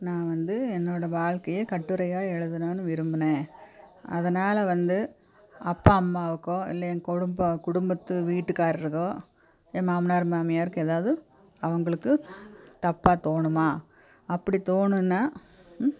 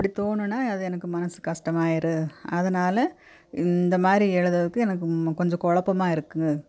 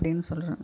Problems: none marked